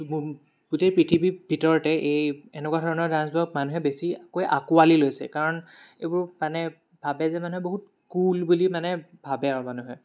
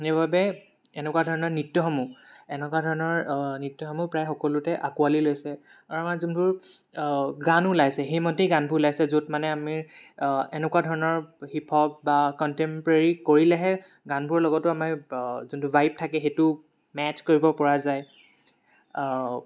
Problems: background sounds at intervals